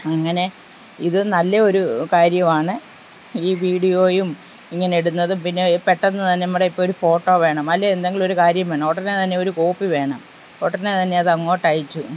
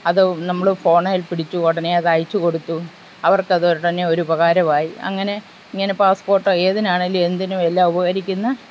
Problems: constant background noise